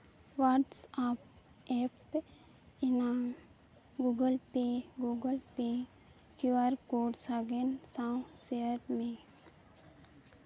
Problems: background sounds at intervals